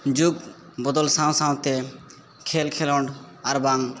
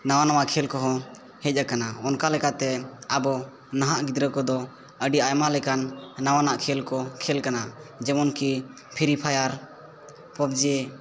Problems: none marked